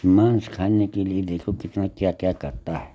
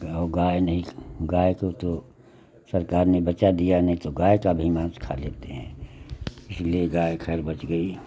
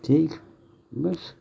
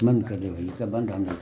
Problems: none marked